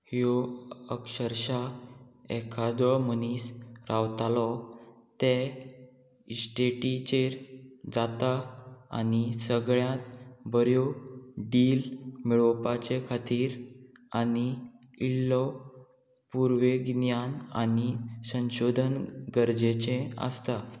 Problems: constant background noise